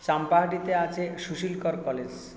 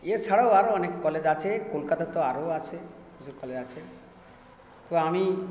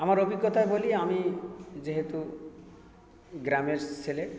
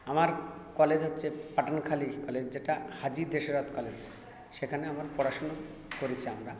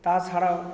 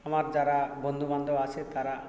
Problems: constant background noise, continuous background conversations